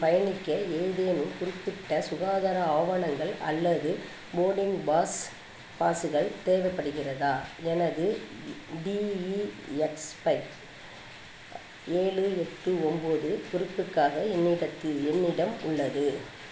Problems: constant background noise